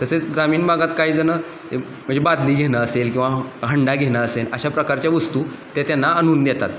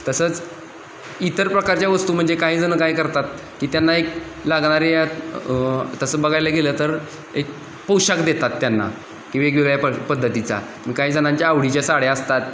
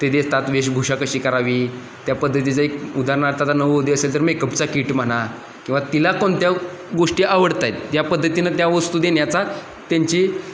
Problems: constant background noise